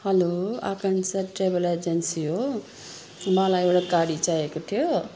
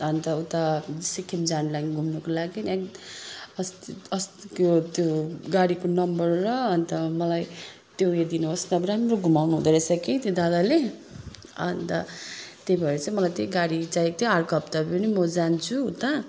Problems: background sounds at intervals